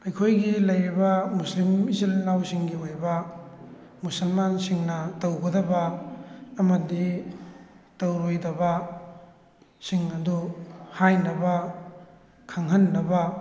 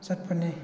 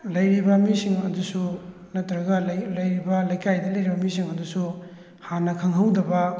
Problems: background conversations at intervals